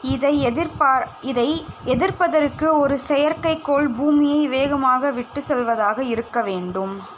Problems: constant background noise